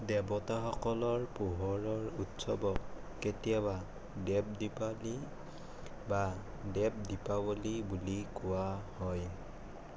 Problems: constant background noise